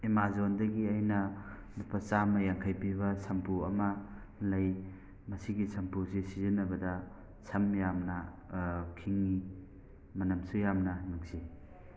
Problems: background sounds at intervals, background conversations at intervals